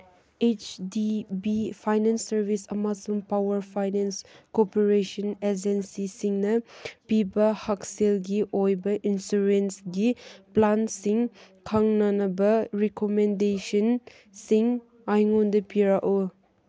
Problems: background sounds at intervals